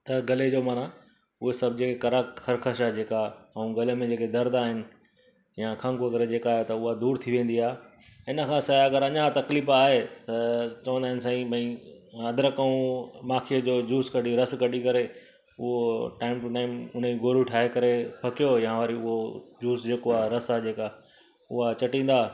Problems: constant background noise